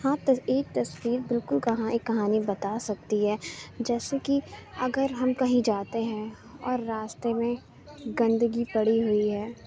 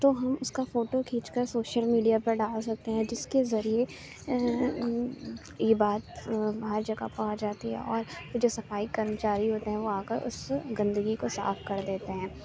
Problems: constant background noise, low volume